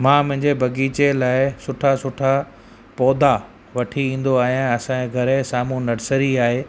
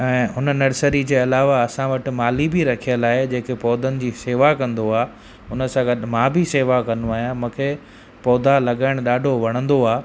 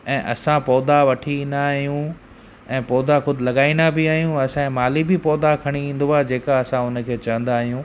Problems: constant background noise, echo